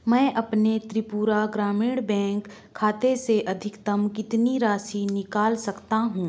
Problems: background sounds at intervals